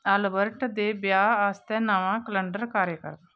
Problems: constant background noise